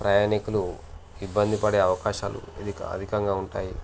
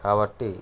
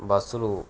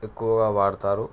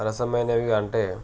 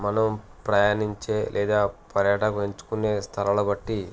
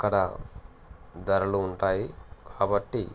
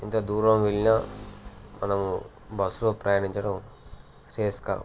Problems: constant background noise